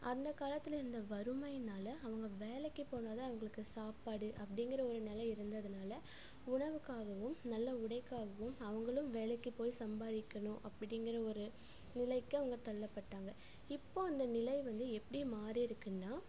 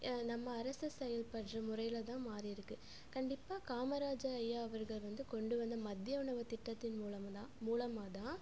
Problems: none marked